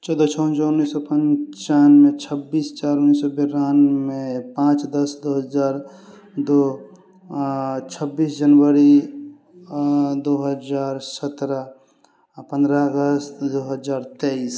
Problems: none marked